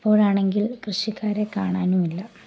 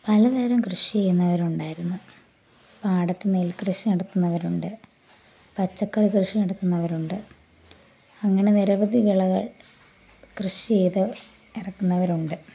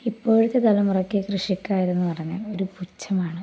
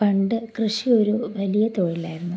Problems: low volume